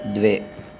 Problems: none marked